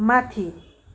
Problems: constant background noise